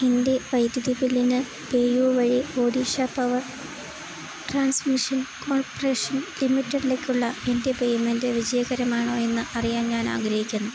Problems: constant background noise